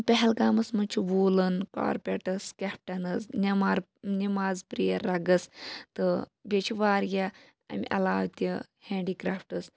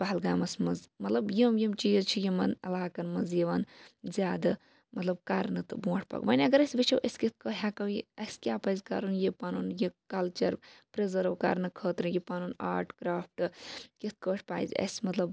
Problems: none marked